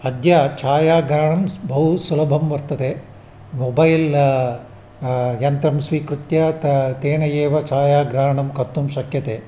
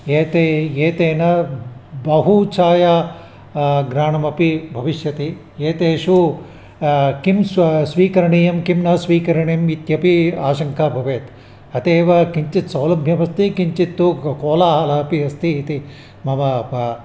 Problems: constant background noise